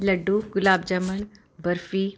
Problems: constant background noise